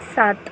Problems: none marked